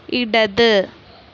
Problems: none marked